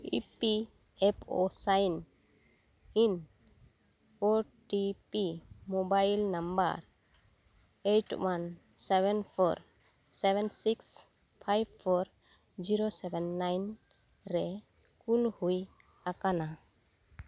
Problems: none marked